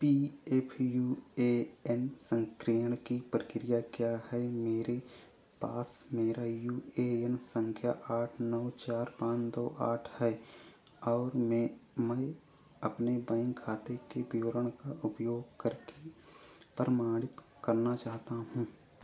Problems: low volume